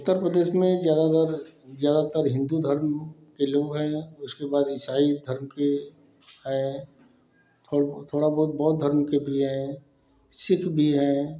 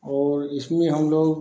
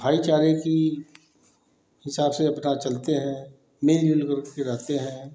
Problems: none marked